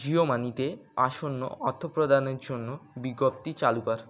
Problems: constant background noise